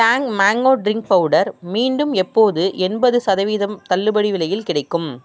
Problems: none marked